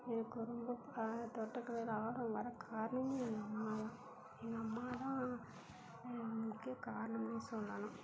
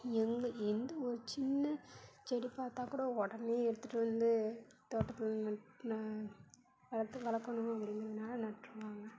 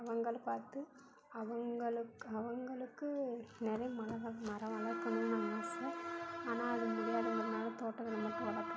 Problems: constant background noise, low volume